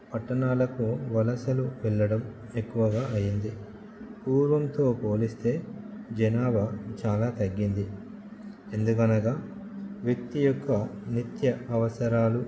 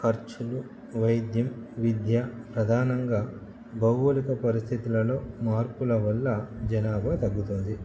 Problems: constant background noise